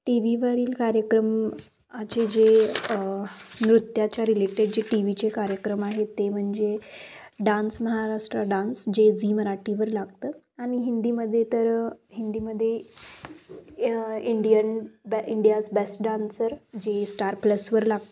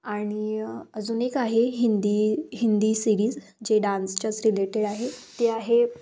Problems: constant background noise